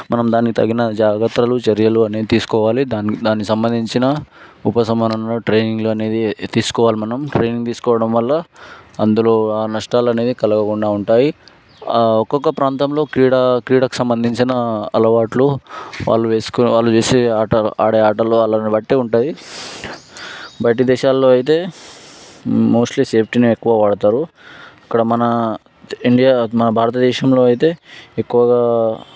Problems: background sounds at intervals